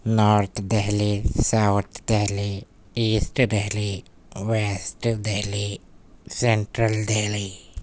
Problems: none marked